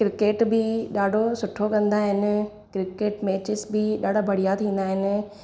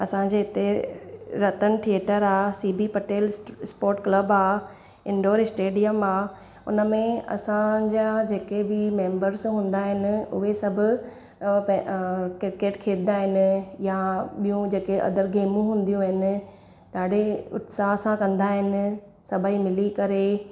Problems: constant background noise